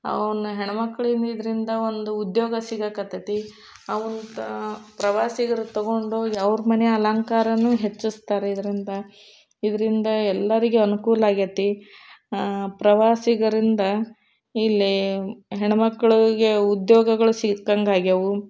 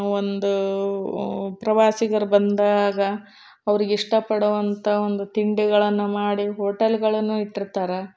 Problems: none marked